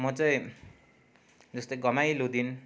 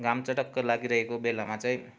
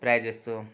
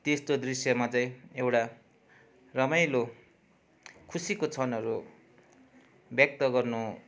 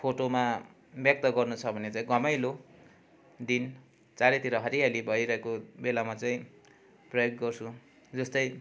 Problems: constant background noise